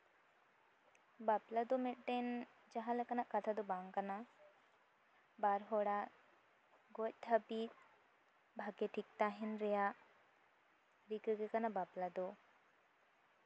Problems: none marked